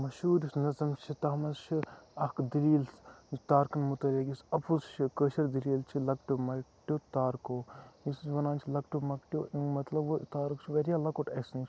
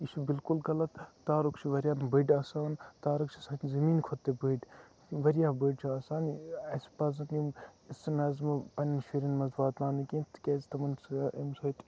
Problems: background sounds at intervals, low volume